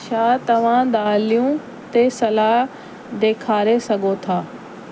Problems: constant background noise